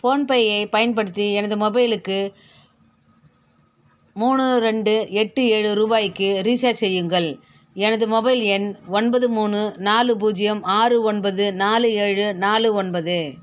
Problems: none marked